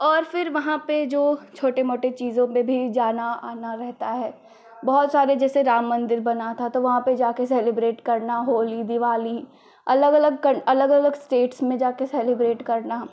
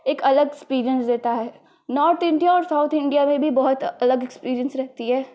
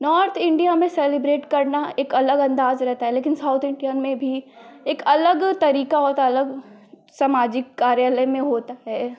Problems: constant background noise